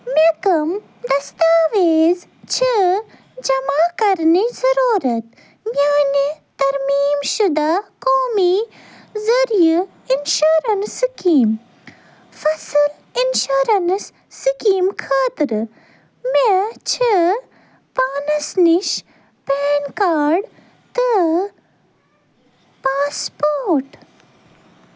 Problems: none marked